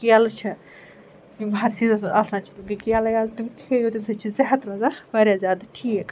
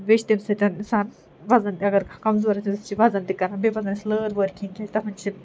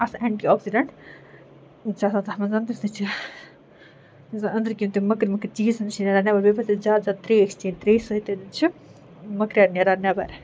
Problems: constant background noise